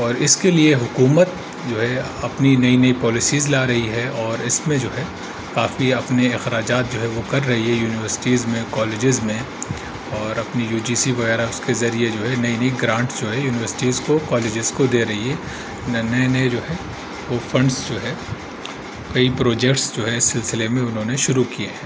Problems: constant background noise